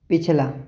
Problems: echo